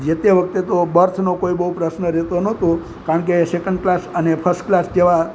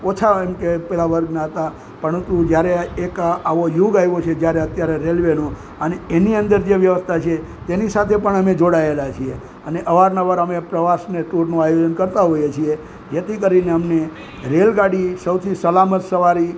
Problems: constant background noise